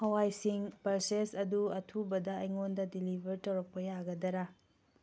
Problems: none marked